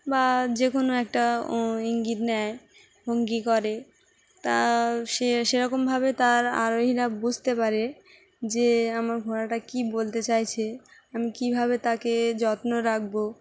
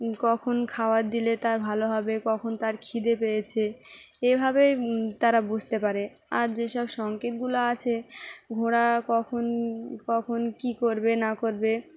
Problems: constant background noise